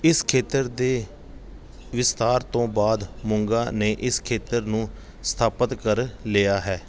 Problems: background sounds at intervals